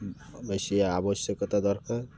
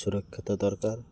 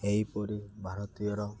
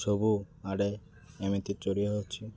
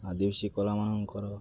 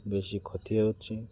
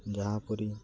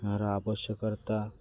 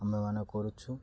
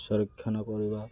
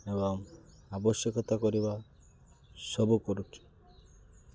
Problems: constant background noise